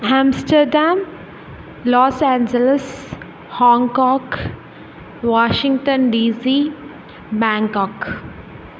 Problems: background sounds at intervals